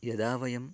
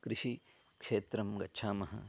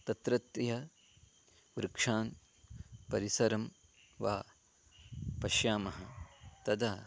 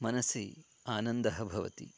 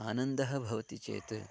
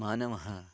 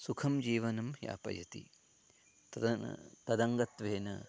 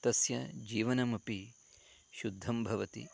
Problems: none marked